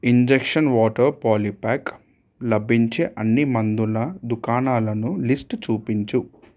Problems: none marked